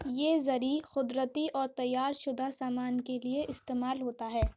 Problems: none marked